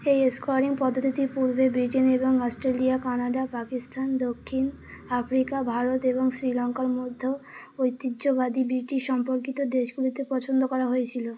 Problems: background sounds at intervals